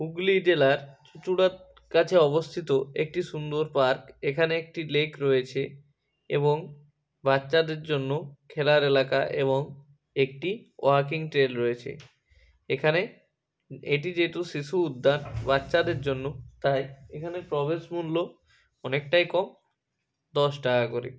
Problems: constant background noise, background conversations at intervals